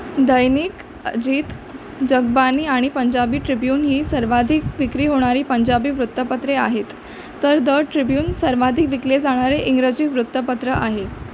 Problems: constant background noise